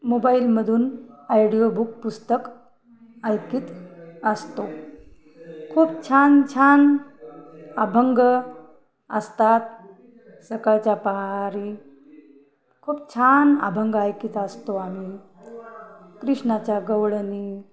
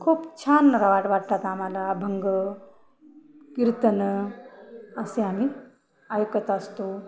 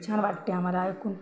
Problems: none marked